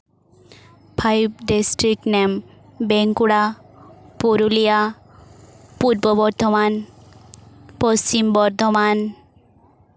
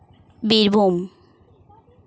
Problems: background sounds at intervals, background conversations at intervals